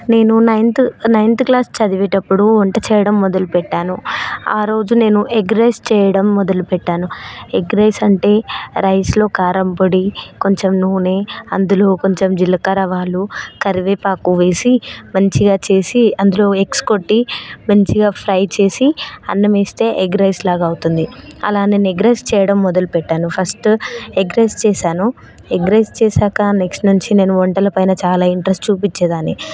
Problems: none marked